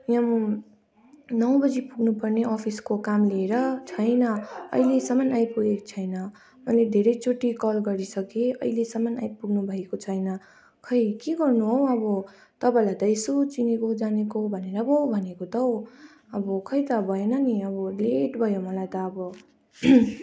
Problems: continuous background conversations